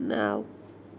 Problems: none marked